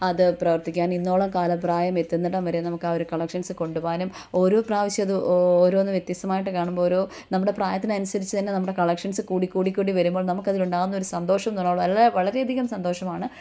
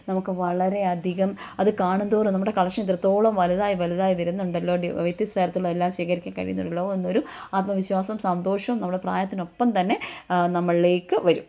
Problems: none marked